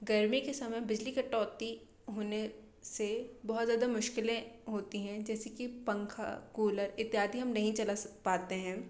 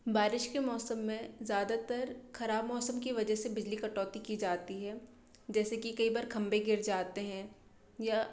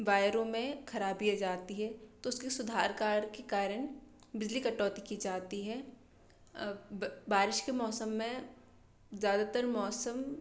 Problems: constant background noise